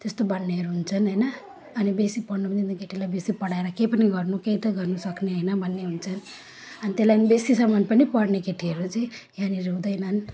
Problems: background sounds at intervals